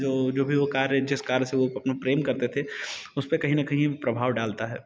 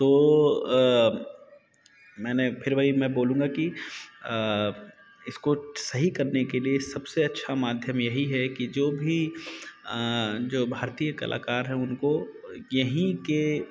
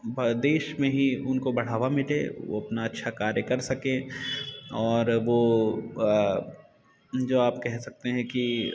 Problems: constant background noise